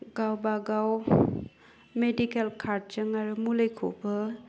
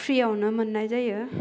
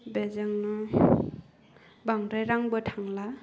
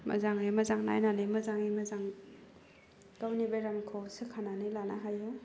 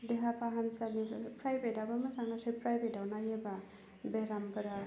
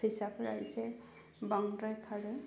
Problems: low volume